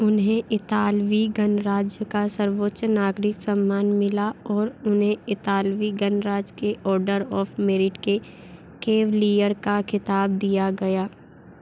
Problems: none marked